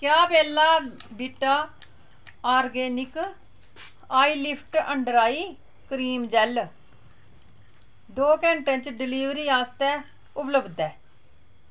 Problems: constant background noise